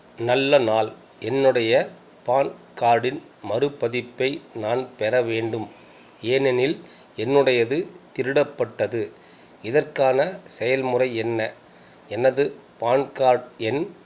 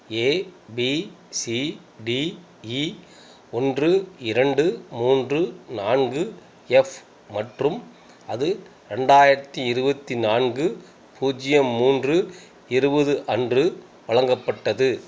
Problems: background sounds at intervals